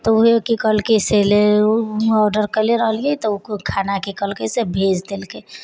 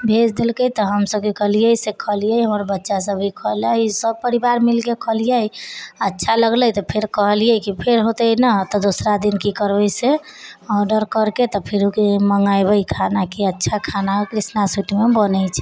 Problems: background conversations at intervals